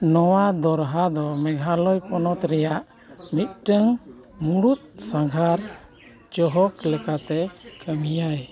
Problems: continuous background conversations